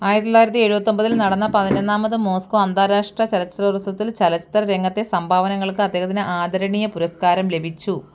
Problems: none marked